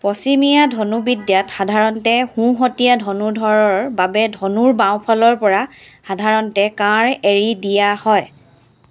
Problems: background sounds at intervals